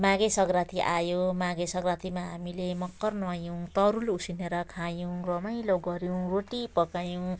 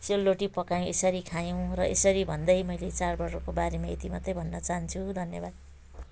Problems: none marked